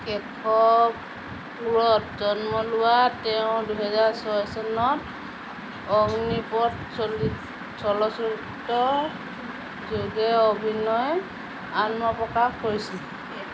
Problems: constant background noise